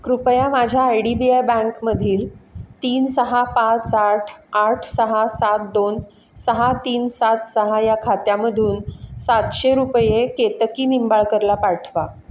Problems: constant background noise